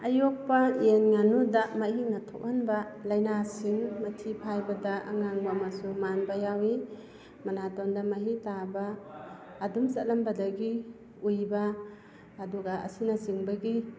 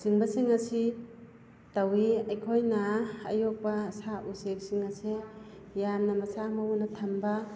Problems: none marked